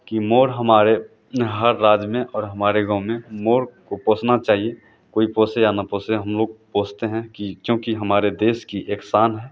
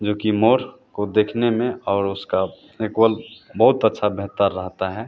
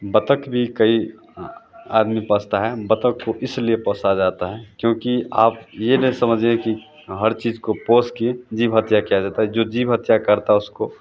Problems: none marked